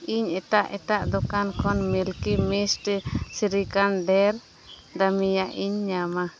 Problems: constant background noise